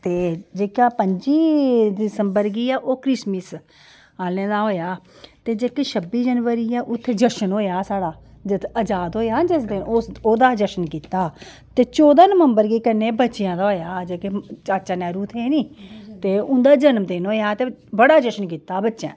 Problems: none marked